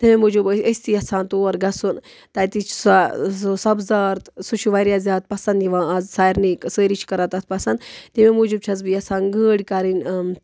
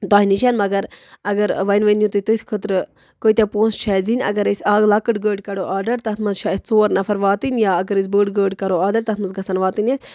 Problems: none marked